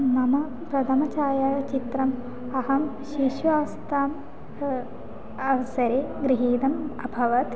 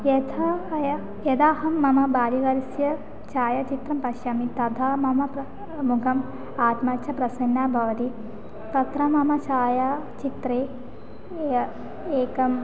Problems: constant background noise, continuous background conversations